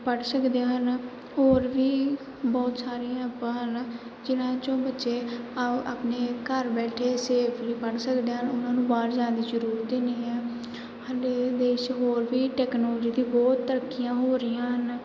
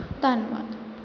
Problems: background sounds at intervals